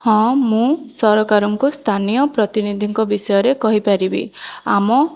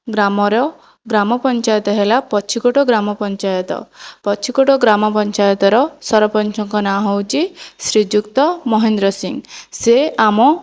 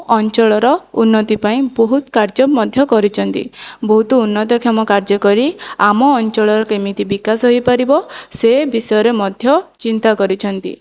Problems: none marked